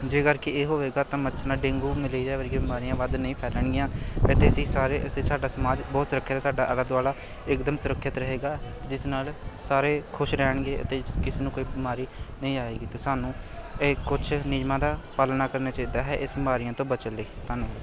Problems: none marked